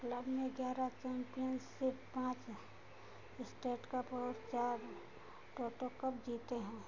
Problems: constant background noise, low volume